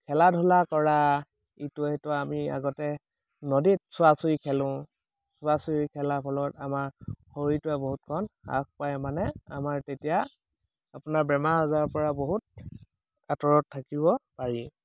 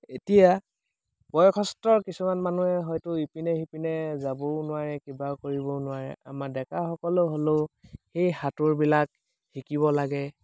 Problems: none marked